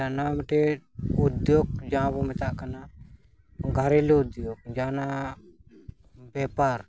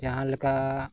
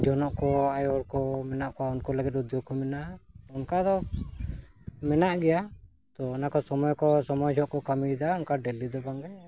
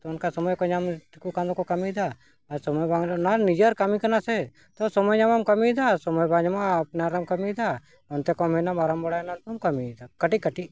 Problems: background sounds at intervals